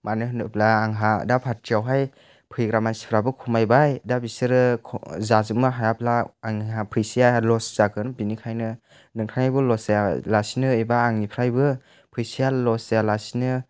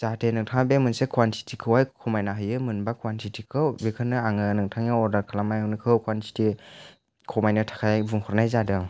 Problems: none marked